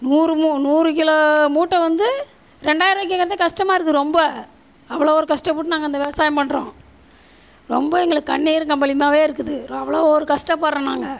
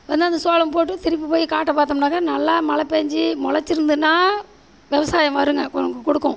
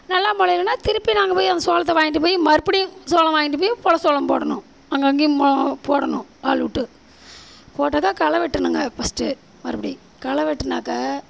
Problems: none marked